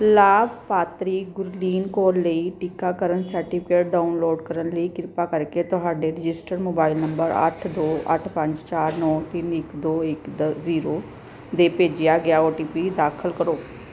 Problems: background sounds at intervals